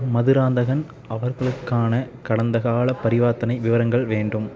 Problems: continuous background conversations